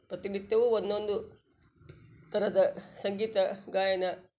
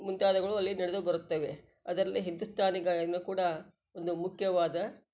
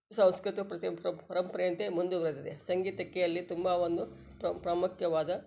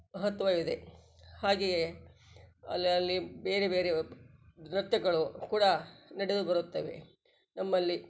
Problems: none marked